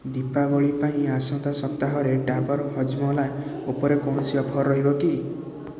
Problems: constant background noise, continuous background conversations